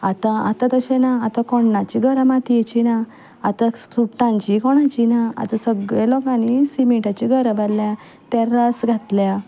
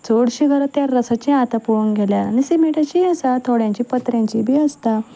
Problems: background sounds at intervals